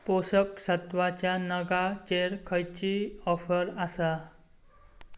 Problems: none marked